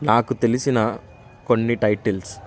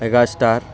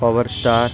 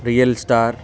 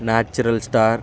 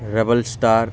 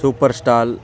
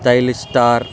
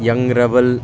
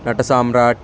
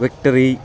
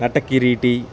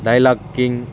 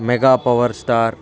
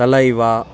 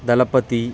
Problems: background sounds at intervals, continuous background conversations